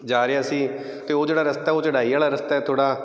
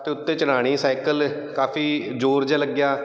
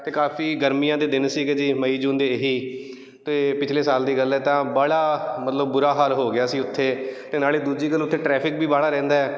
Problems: none marked